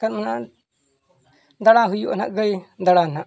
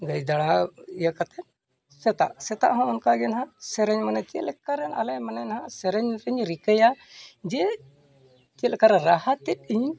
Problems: none marked